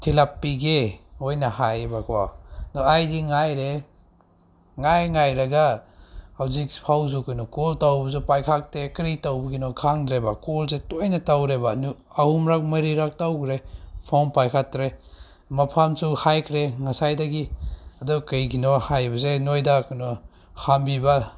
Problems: none marked